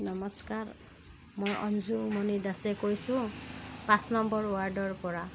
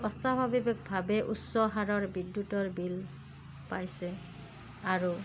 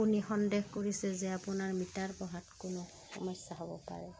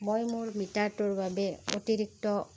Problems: none marked